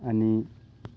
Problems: none marked